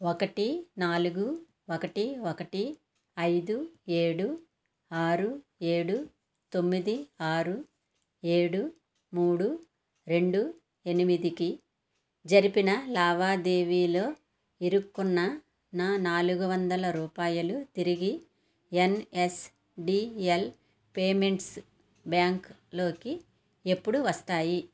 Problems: none marked